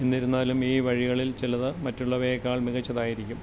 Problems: constant background noise, low volume